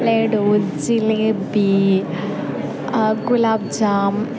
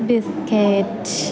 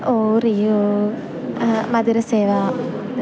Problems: constant background noise, low volume